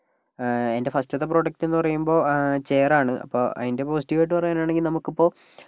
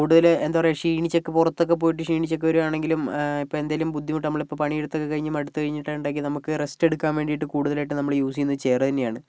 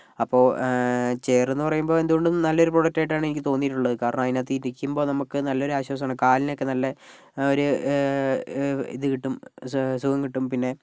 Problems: none marked